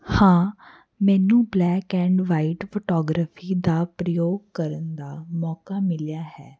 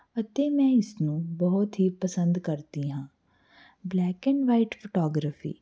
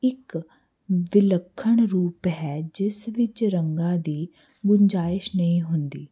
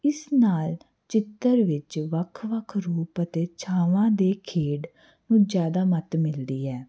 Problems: none marked